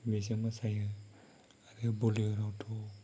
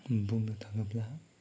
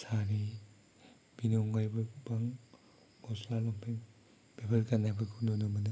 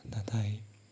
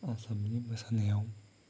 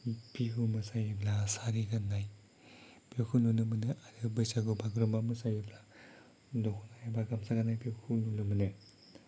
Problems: low volume